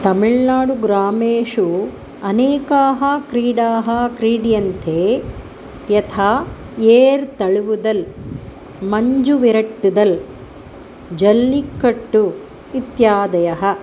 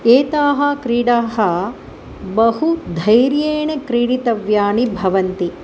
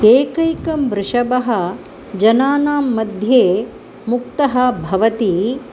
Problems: none marked